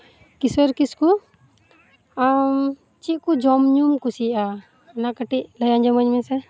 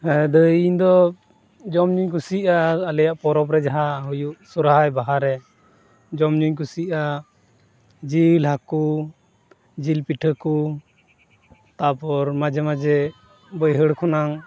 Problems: none marked